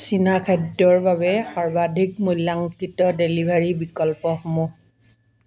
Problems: none marked